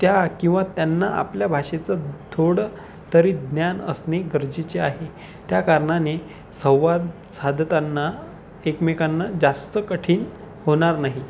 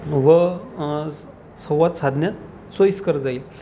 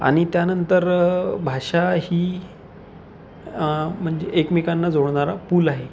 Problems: none marked